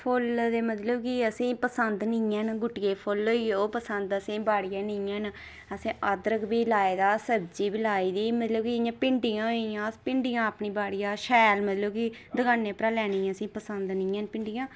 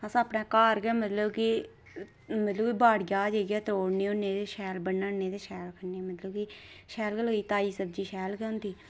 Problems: none marked